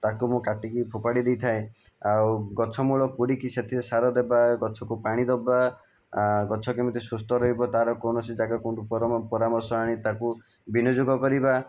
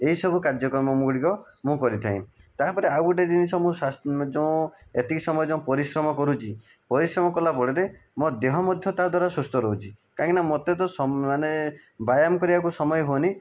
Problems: background sounds at intervals